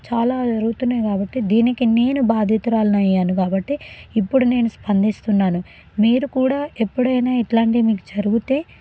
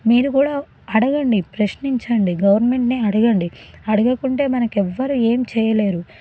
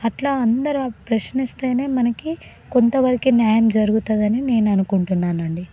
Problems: none marked